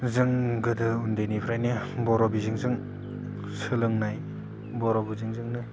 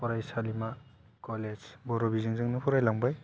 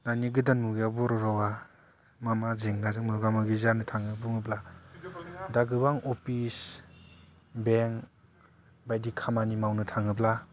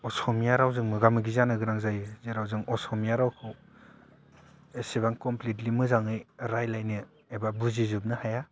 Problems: low volume